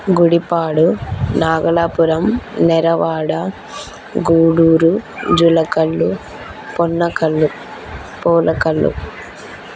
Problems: constant background noise